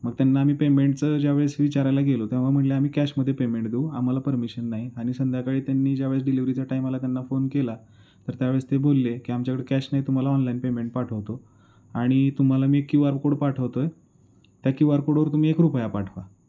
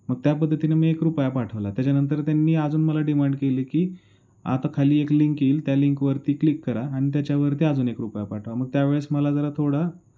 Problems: background sounds at intervals